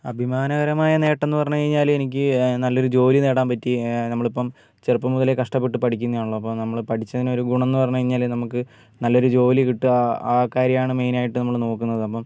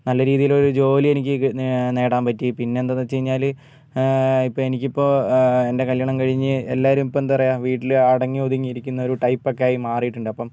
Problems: none marked